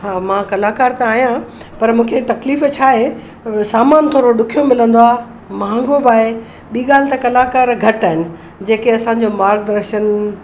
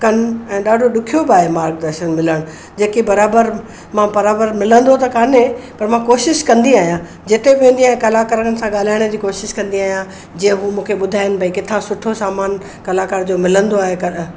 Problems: constant background noise, background conversations at intervals